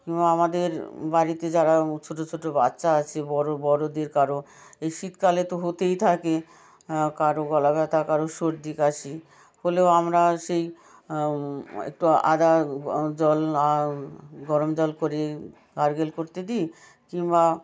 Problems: background conversations at intervals